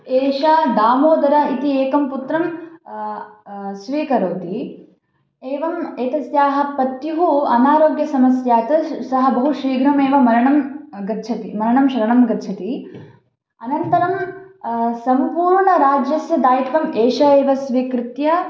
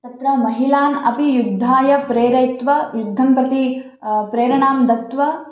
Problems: none marked